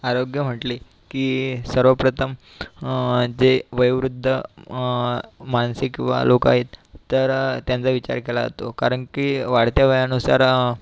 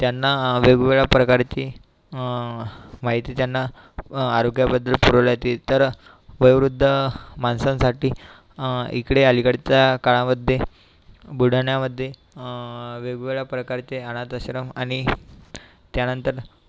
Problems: constant background noise